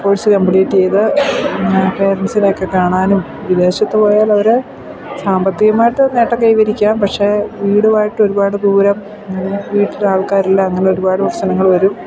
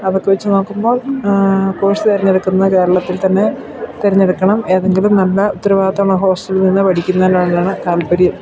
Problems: background sounds at intervals